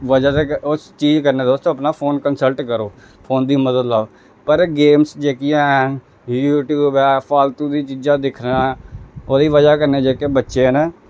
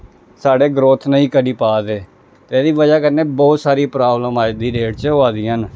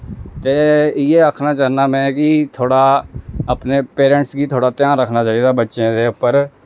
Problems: none marked